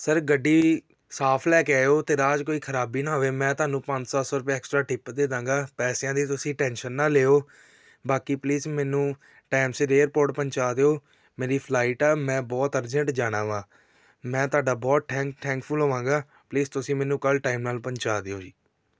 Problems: background sounds at intervals